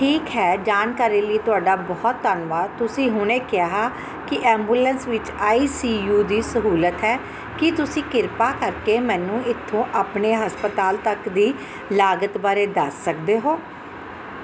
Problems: none marked